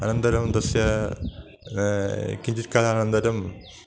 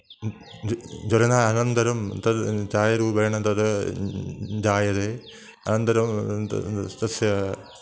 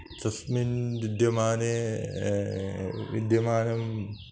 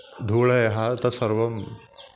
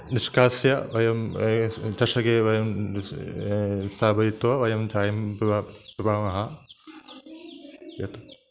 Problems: constant background noise